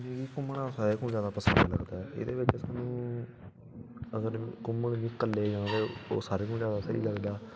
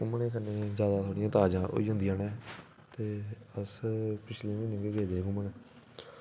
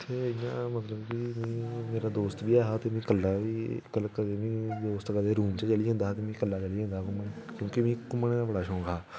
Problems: background sounds at intervals